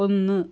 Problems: none marked